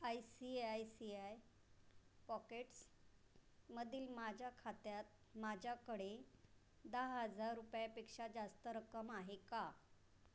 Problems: constant background noise